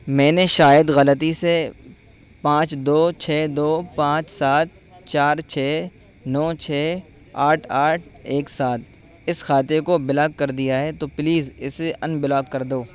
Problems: constant background noise